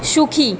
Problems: background conversations at intervals